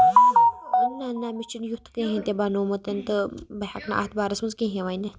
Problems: constant background noise